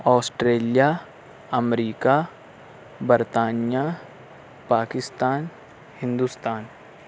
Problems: constant background noise